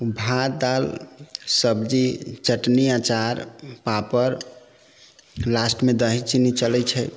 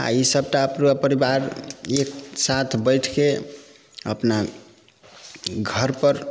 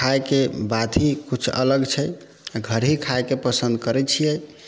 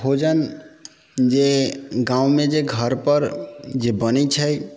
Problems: background sounds at intervals